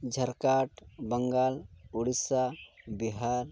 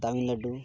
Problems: background sounds at intervals